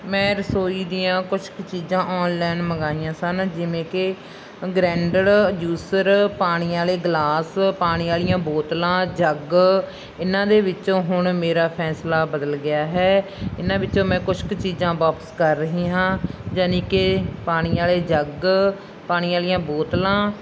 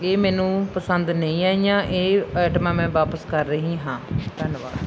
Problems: background sounds at intervals